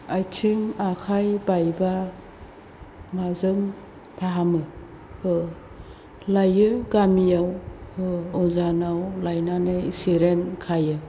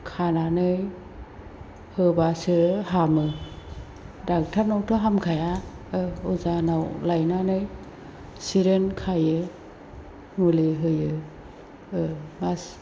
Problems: constant background noise